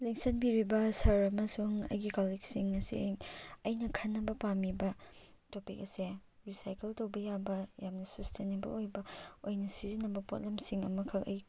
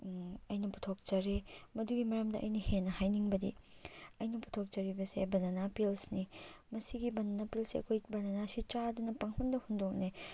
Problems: none marked